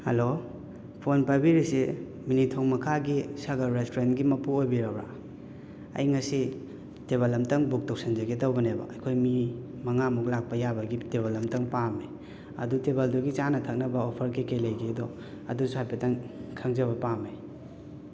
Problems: constant background noise, echo